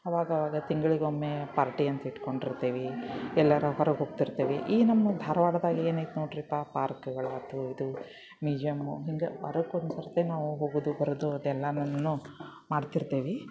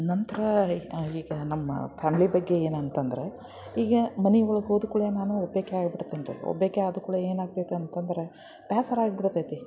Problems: none marked